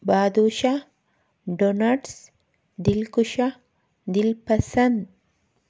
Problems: none marked